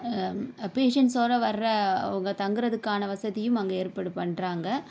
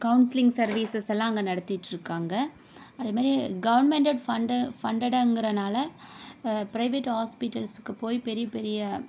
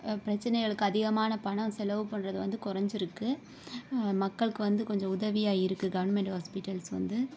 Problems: none marked